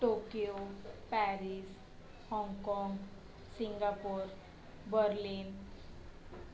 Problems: constant background noise, low volume